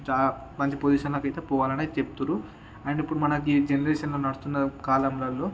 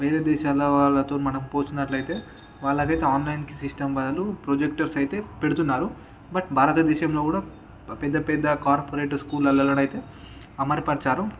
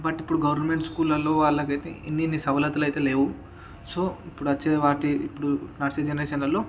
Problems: none marked